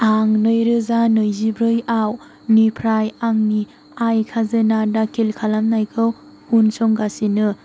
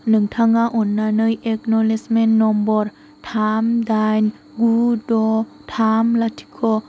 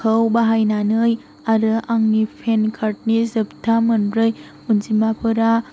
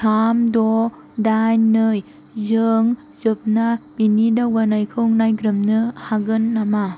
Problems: none marked